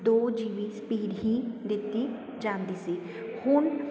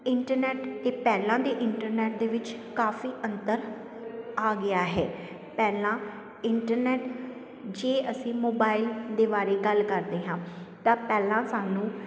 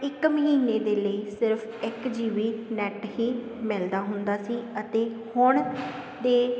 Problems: constant background noise